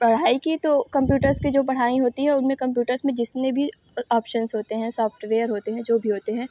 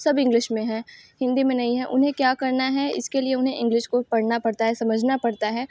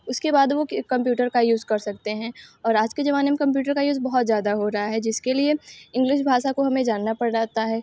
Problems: background sounds at intervals